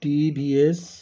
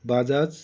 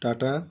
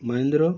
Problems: background sounds at intervals